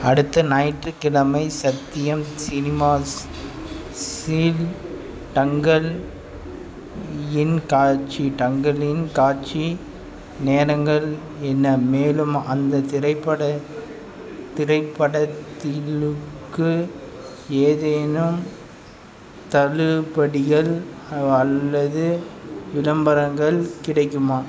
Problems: constant background noise